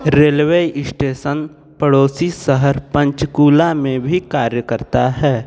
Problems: background conversations at intervals